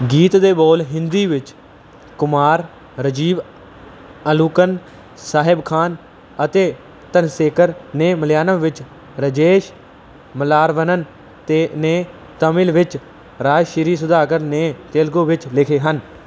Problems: none marked